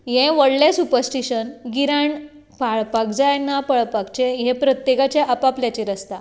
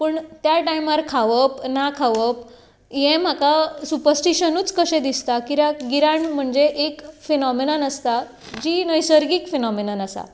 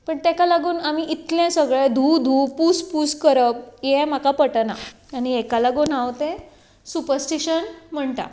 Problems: constant background noise